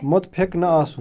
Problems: background sounds at intervals, background conversations at intervals